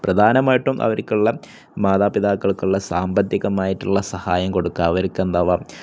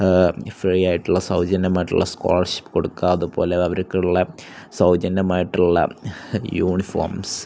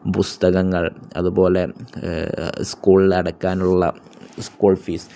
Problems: none marked